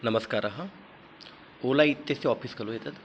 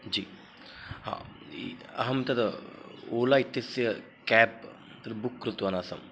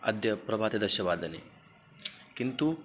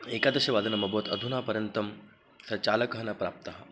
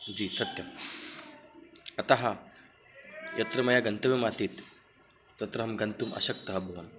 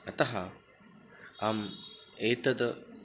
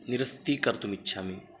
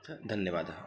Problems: background sounds at intervals